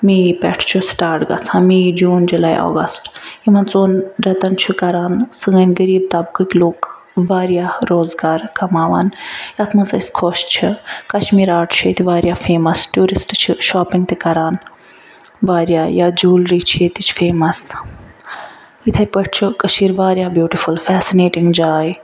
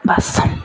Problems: none marked